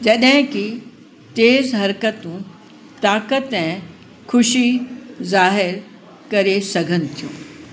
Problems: constant background noise, echo